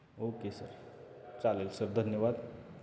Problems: constant background noise